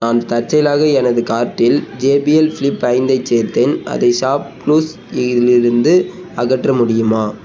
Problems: constant background noise